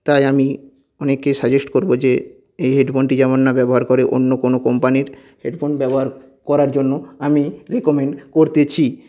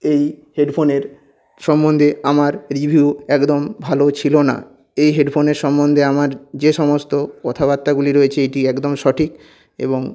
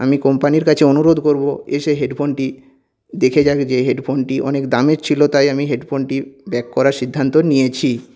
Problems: none marked